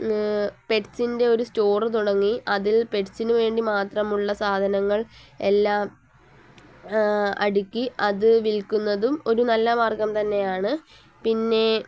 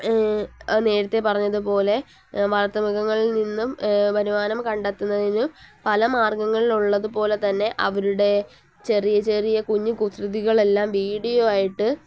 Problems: none marked